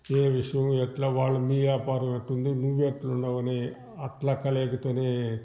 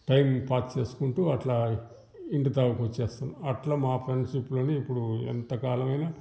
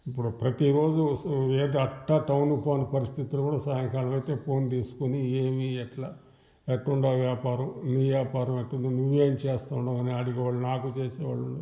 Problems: background sounds at intervals